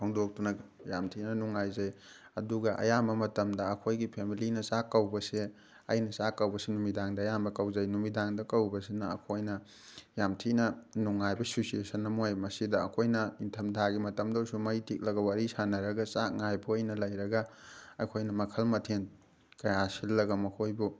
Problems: none marked